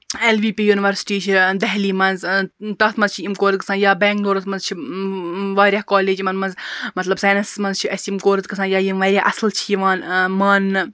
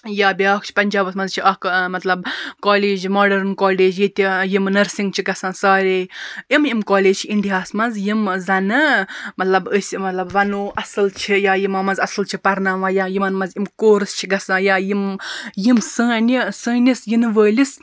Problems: none marked